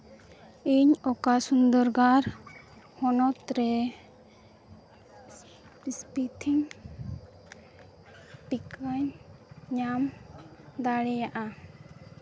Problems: background sounds at intervals